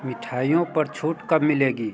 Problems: constant background noise, background conversations at intervals